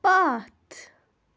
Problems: none marked